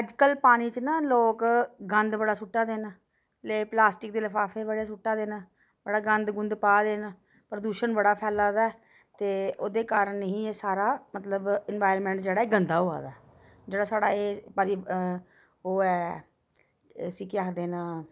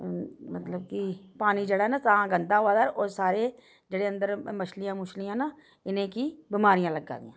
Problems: background sounds at intervals